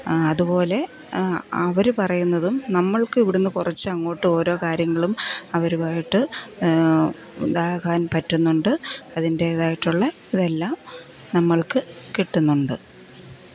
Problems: constant background noise, low volume